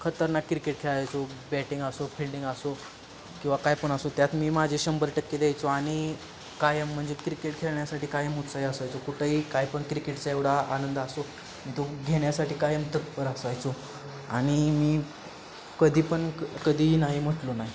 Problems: constant background noise